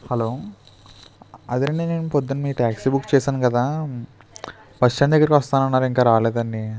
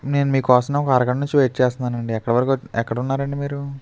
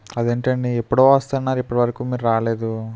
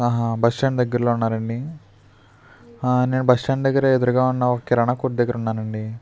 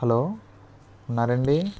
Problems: constant background noise, background conversations at intervals